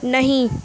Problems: none marked